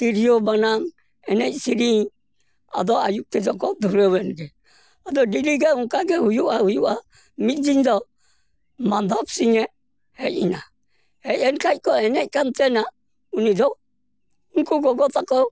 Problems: none marked